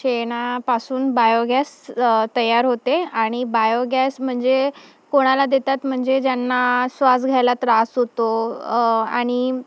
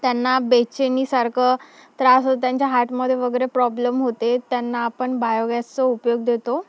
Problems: background sounds at intervals